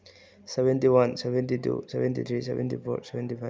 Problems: low volume